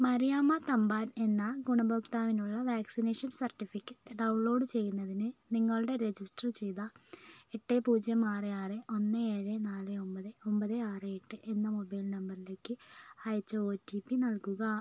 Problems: low volume